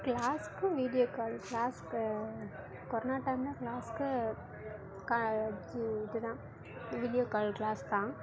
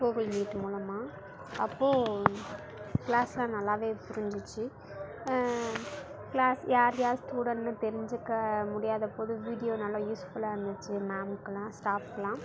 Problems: constant background noise